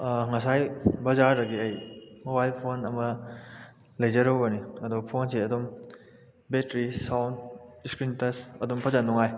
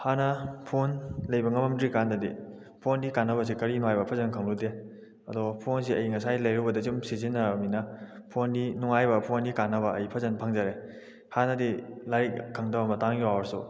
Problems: background sounds at intervals